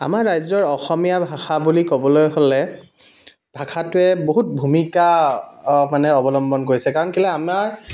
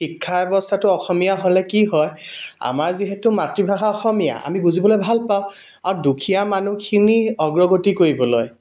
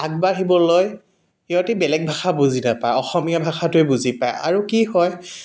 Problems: background sounds at intervals